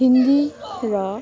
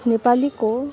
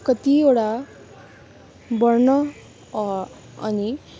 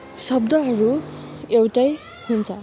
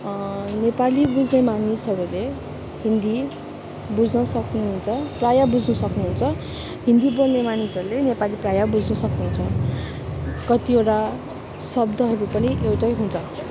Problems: constant background noise, continuous background conversations